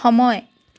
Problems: none marked